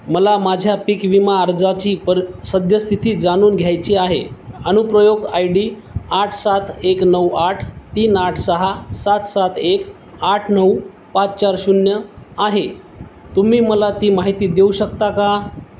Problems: none marked